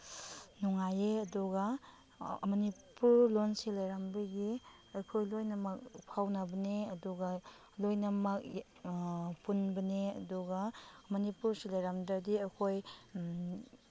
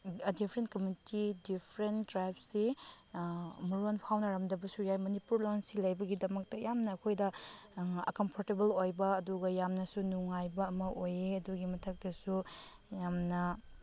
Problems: none marked